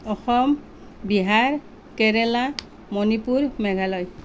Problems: constant background noise